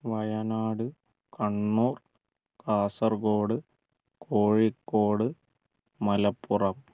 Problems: low volume